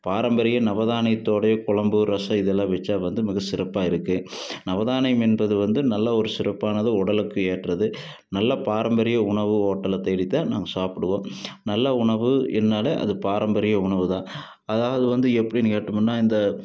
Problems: background sounds at intervals